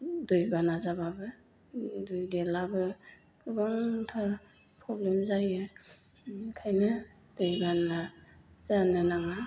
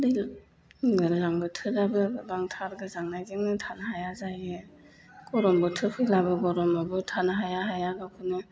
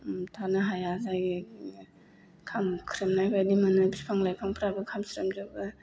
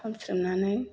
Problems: low volume